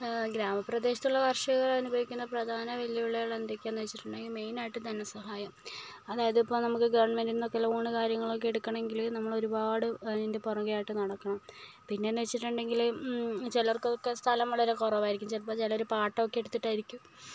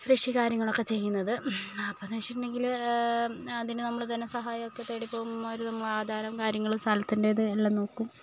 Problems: none marked